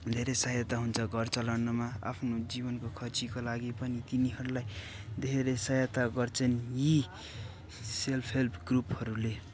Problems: background sounds at intervals